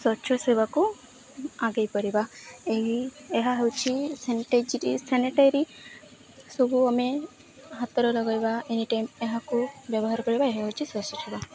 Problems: none marked